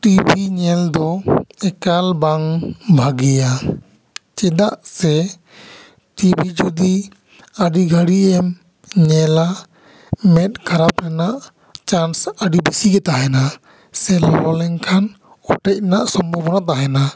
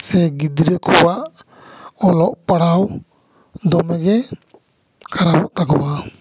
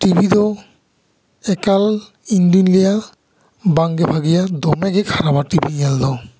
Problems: echo